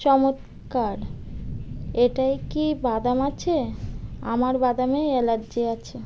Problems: none marked